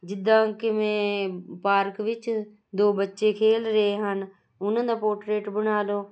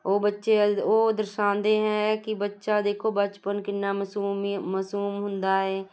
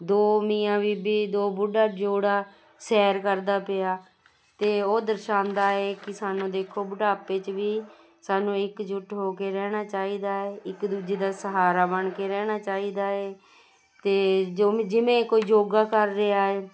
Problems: constant background noise